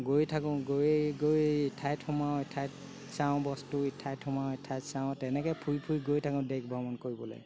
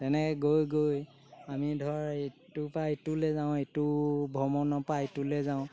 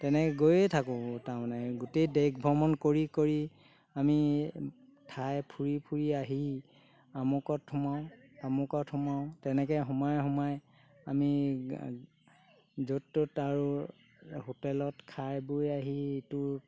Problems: constant background noise